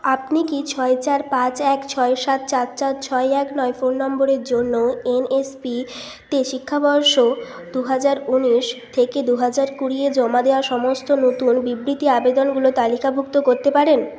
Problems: constant background noise